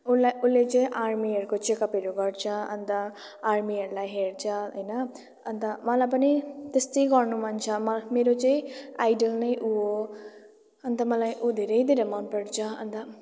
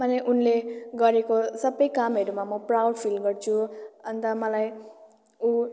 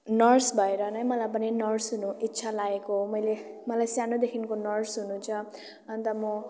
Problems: continuous background conversations